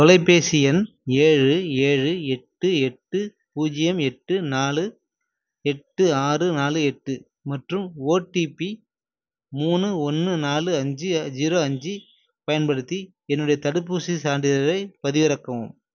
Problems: none marked